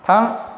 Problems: constant background noise